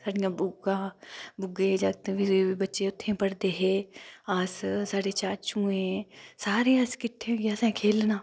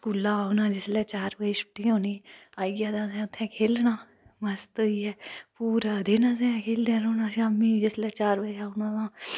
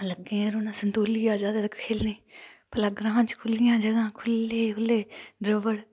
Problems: none marked